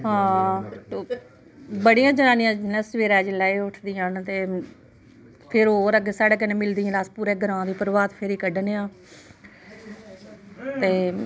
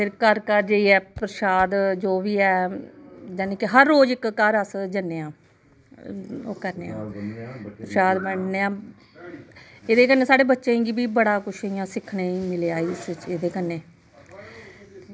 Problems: none marked